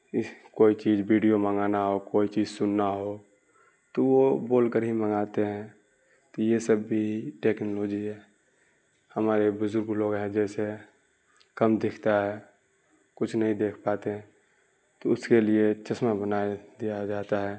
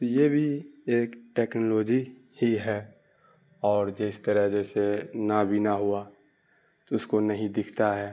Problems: none marked